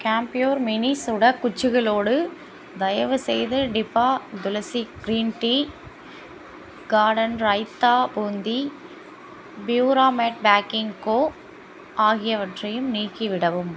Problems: constant background noise